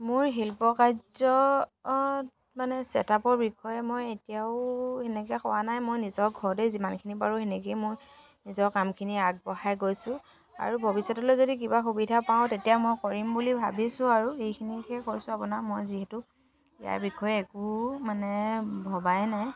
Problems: background conversations at intervals